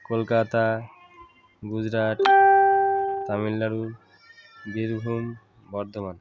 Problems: constant background noise